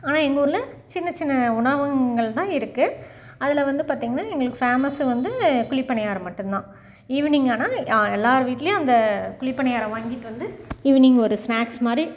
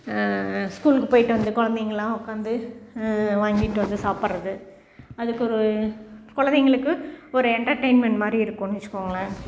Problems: background sounds at intervals